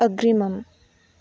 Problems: none marked